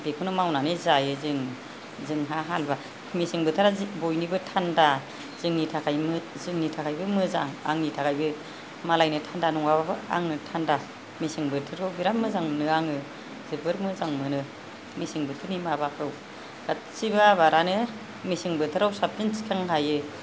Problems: none marked